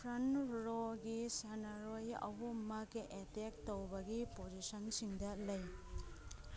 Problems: background sounds at intervals, background conversations at intervals